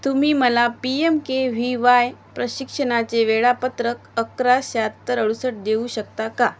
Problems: none marked